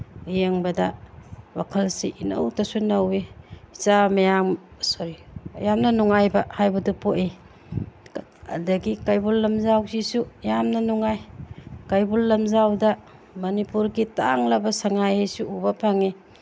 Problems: background sounds at intervals